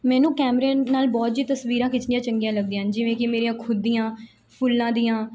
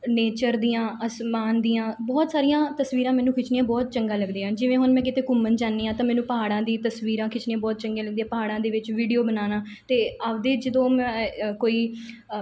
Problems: background sounds at intervals